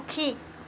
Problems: none marked